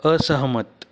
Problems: none marked